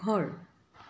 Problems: background sounds at intervals